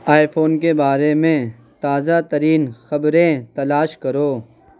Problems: background sounds at intervals, continuous background conversations